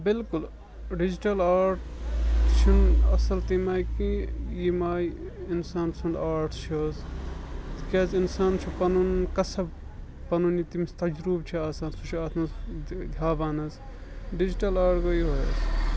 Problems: constant background noise